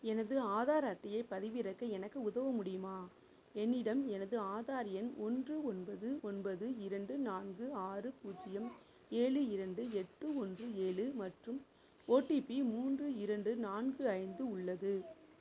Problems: low volume